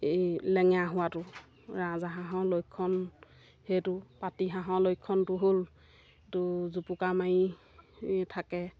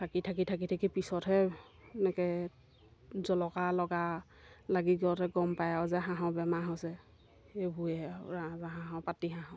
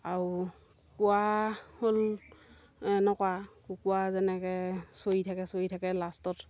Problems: none marked